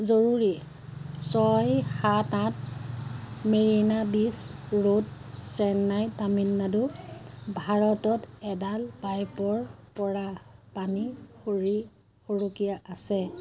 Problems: none marked